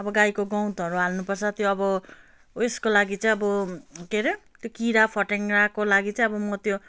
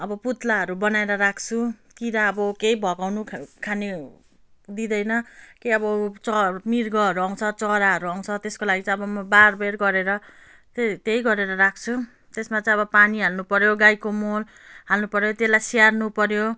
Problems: none marked